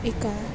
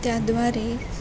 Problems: constant background noise, background conversations at intervals